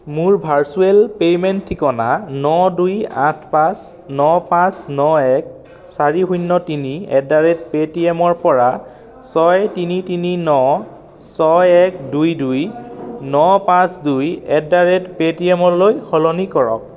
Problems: constant background noise